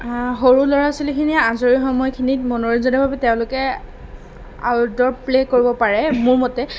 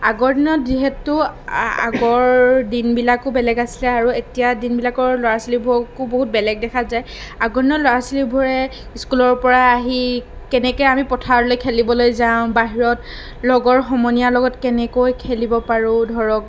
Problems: none marked